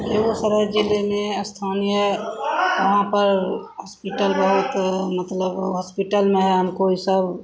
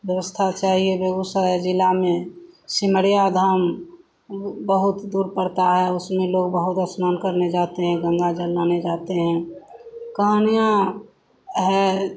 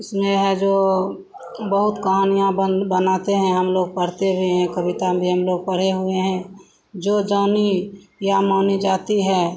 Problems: constant background noise